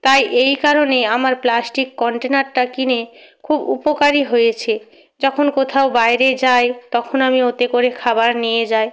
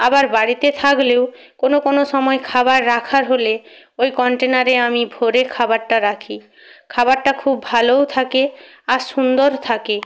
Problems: none marked